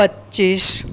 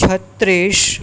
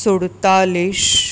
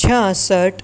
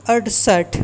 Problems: none marked